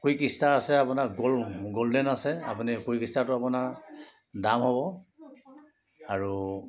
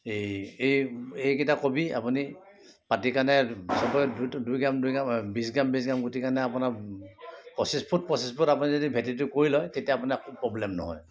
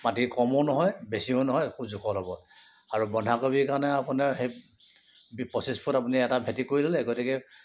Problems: constant background noise, background conversations at intervals